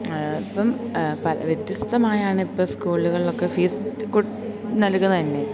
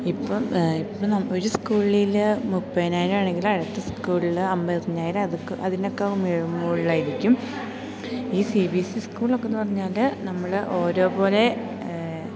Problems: constant background noise, low volume